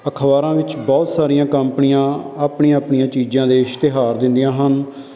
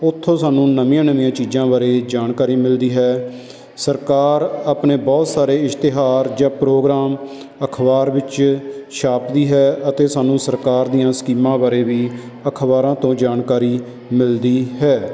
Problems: constant background noise